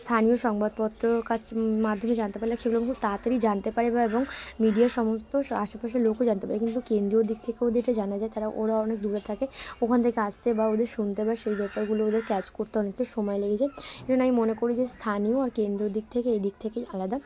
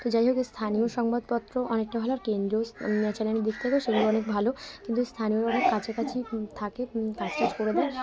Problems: constant background noise, continuous background conversations